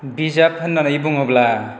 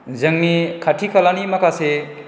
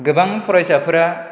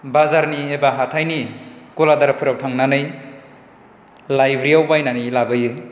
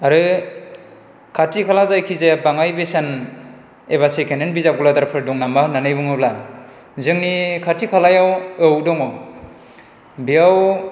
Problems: none marked